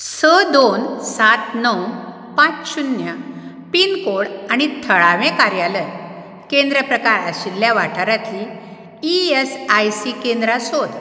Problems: background sounds at intervals